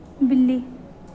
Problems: none marked